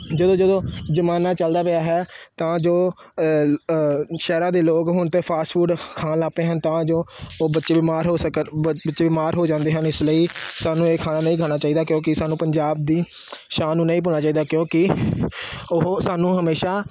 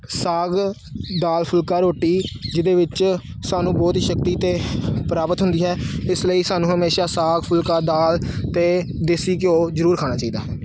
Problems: none marked